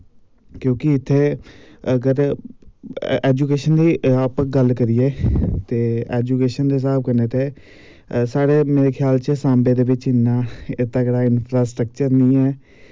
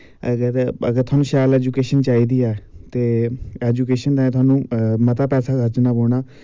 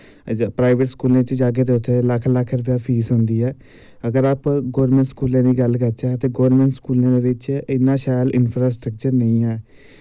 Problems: none marked